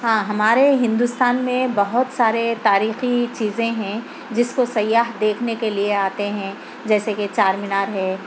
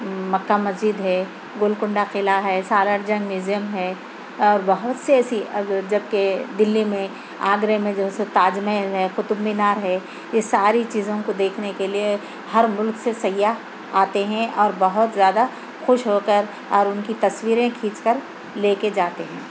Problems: constant background noise